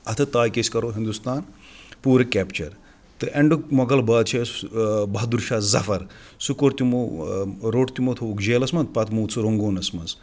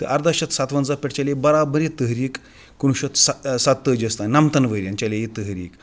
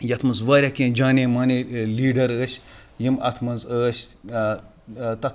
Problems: none marked